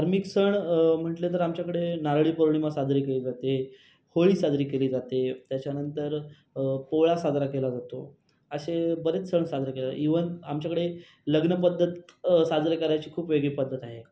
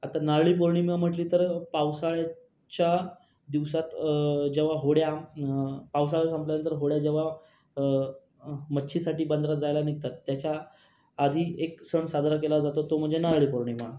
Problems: background sounds at intervals